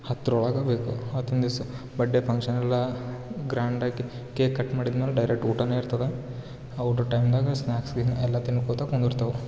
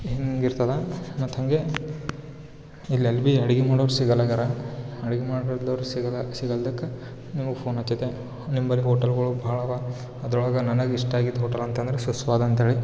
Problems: background sounds at intervals